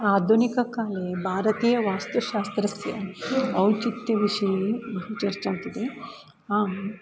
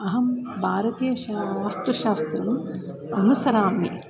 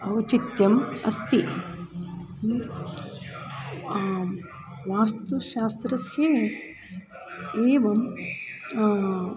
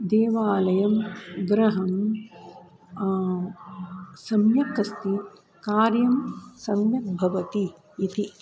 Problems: background sounds at intervals